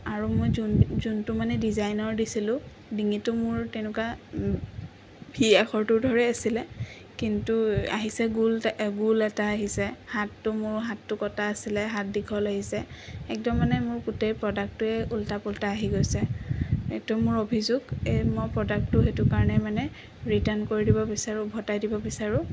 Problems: constant background noise